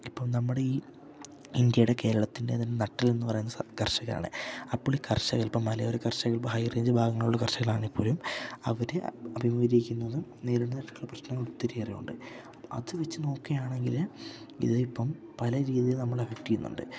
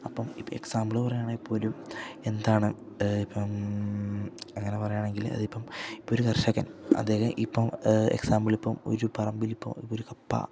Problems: low volume